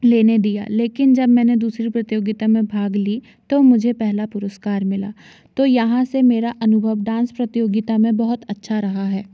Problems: none marked